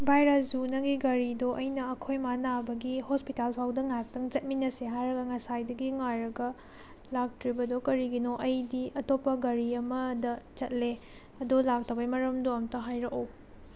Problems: none marked